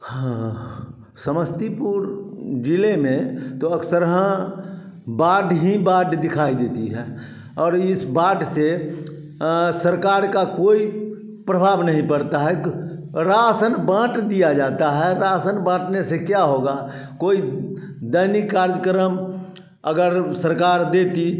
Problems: constant background noise, continuous background conversations